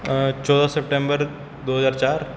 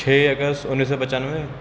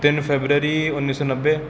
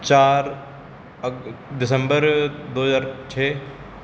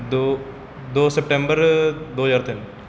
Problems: background sounds at intervals, background conversations at intervals